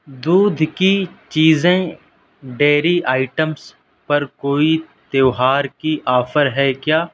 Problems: none marked